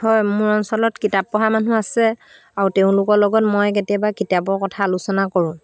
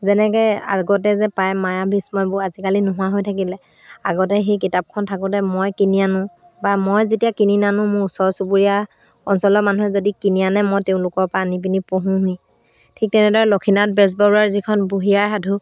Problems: constant background noise